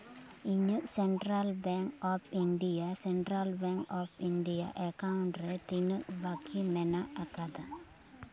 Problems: continuous background conversations